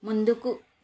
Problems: constant background noise